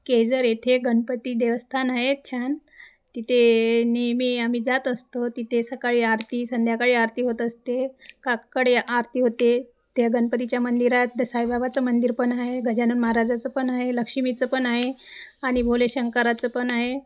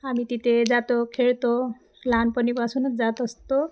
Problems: constant background noise, echo